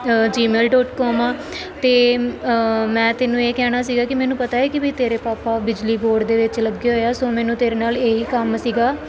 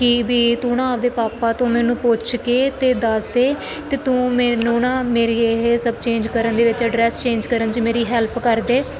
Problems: none marked